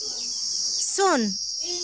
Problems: constant background noise